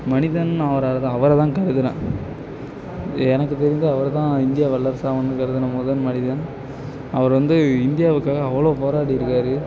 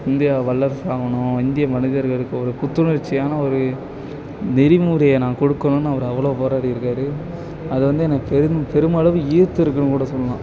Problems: background sounds at intervals, continuous background conversations